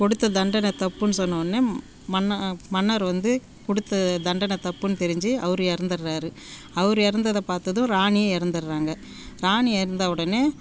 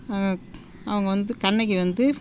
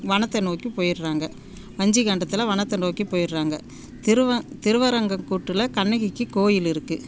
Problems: background sounds at intervals